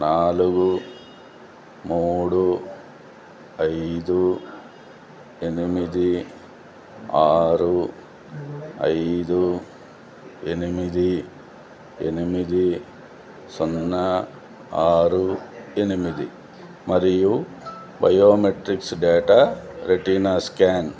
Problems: low volume